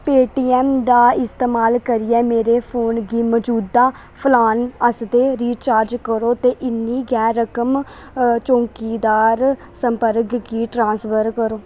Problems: constant background noise